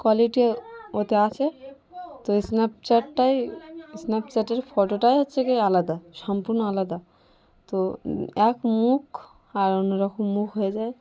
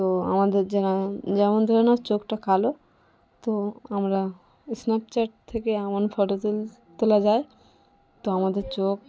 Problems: none marked